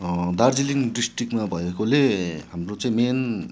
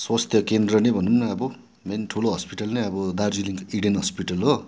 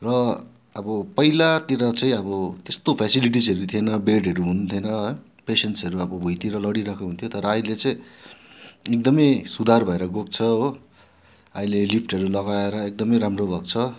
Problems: constant background noise